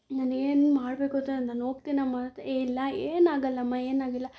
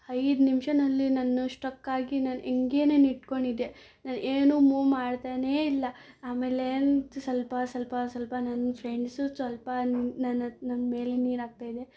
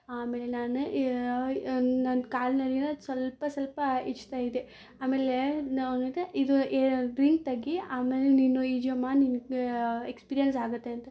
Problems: none marked